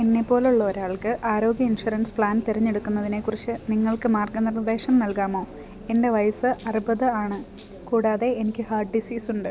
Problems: none marked